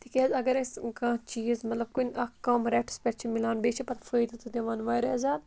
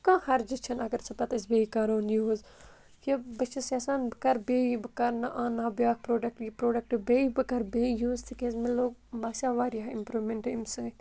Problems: constant background noise